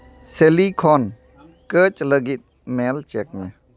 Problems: background conversations at intervals